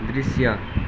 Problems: none marked